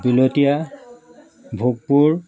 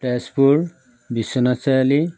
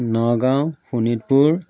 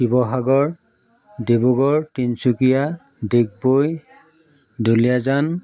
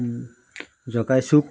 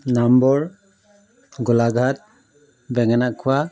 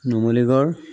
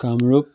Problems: none marked